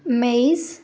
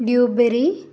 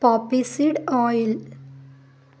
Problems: none marked